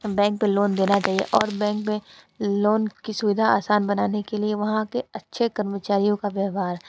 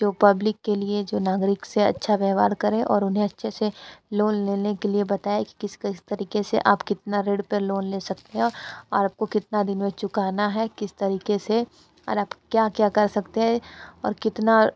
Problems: background sounds at intervals